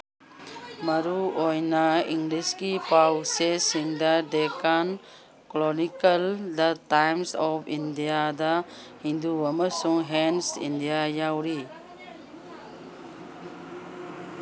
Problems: background sounds at intervals